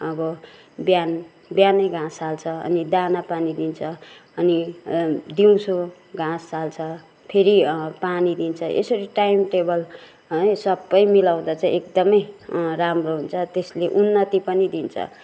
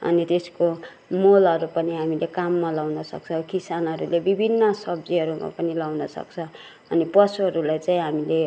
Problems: background sounds at intervals, background conversations at intervals